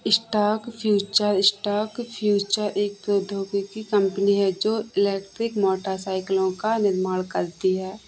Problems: background sounds at intervals